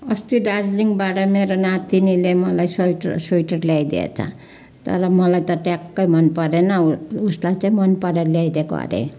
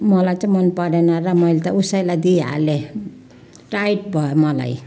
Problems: continuous background conversations